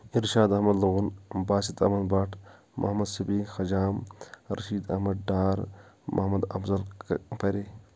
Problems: none marked